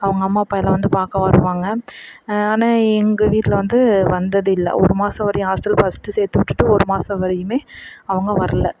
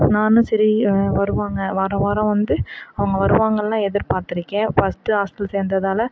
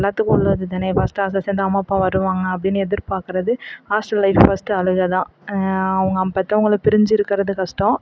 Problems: background sounds at intervals, background conversations at intervals